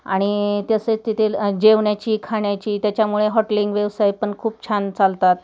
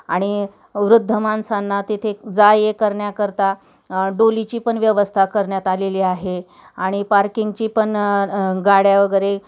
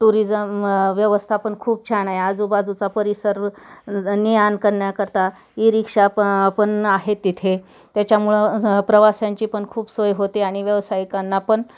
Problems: background sounds at intervals